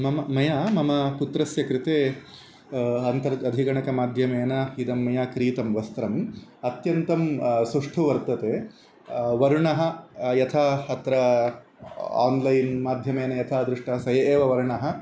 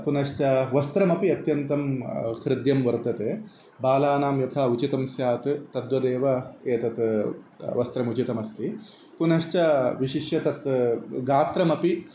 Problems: constant background noise